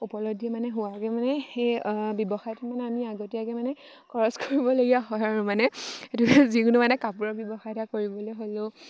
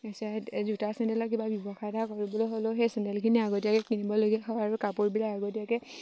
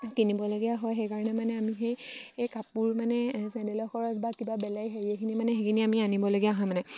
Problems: none marked